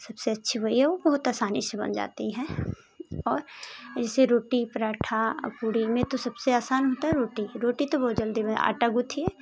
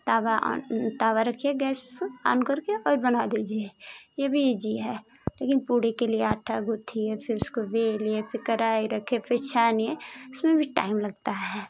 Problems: constant background noise